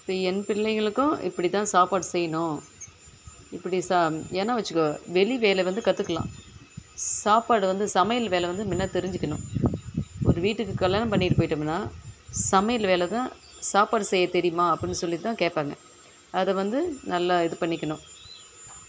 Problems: background sounds at intervals